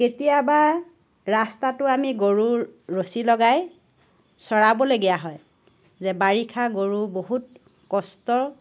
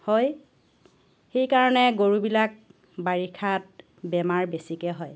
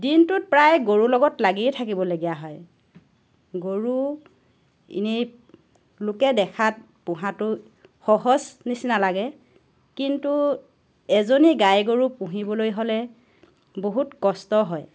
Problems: none marked